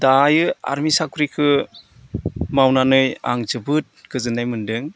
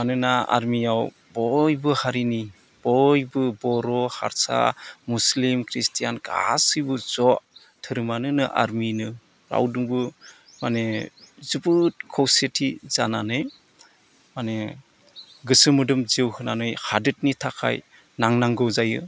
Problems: none marked